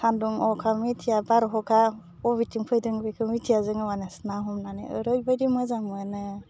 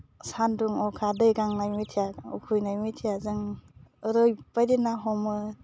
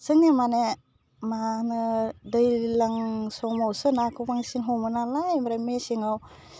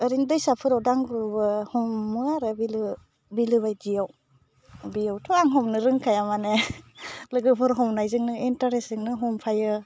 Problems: constant background noise